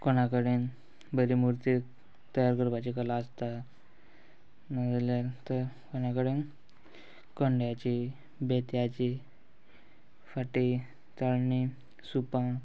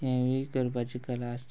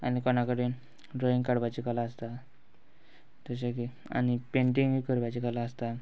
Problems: background sounds at intervals